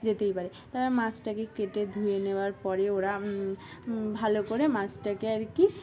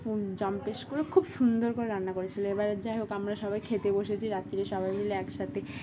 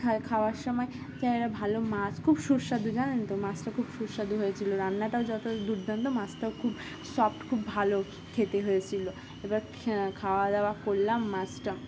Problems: constant background noise, background conversations at intervals